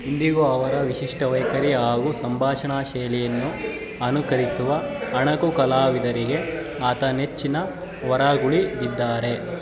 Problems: constant background noise